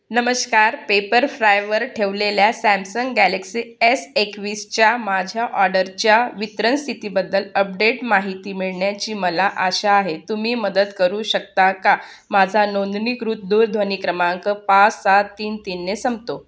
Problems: constant background noise